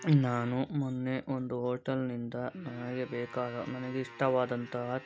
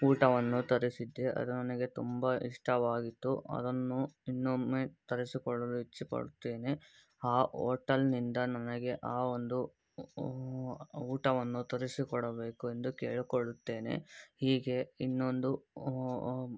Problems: background sounds at intervals